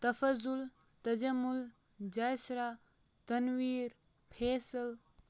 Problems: background sounds at intervals